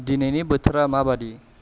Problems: low volume